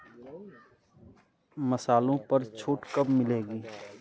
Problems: constant background noise, background conversations at intervals